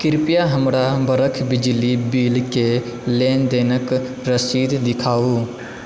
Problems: background sounds at intervals